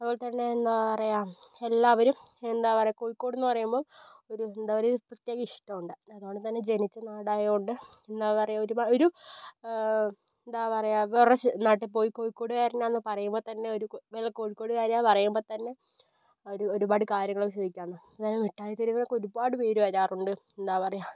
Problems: low volume